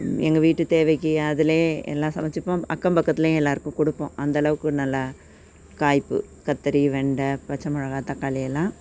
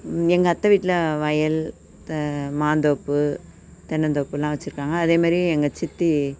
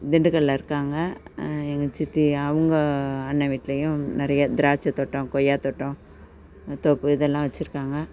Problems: none marked